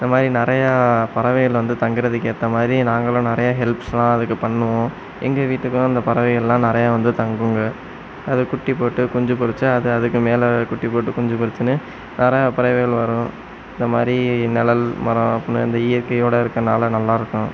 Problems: none marked